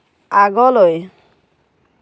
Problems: constant background noise